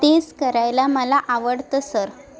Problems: none marked